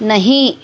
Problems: constant background noise